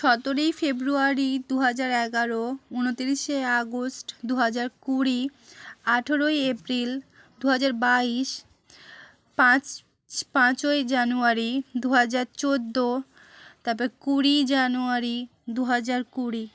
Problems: none marked